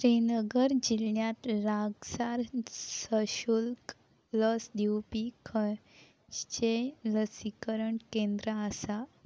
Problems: background sounds at intervals